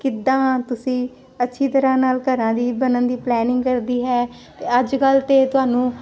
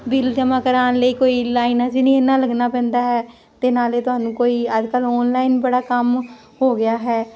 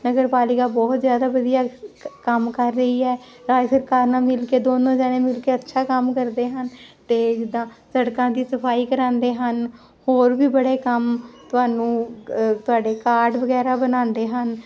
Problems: constant background noise